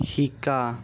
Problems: none marked